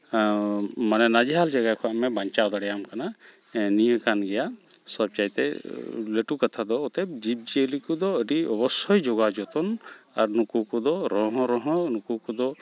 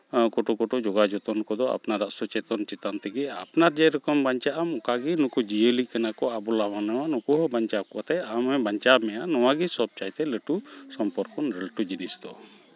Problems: background sounds at intervals, background conversations at intervals